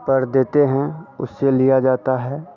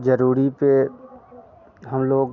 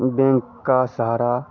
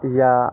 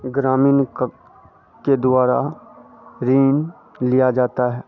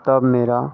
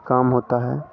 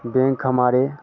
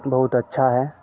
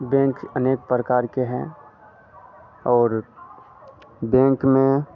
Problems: constant background noise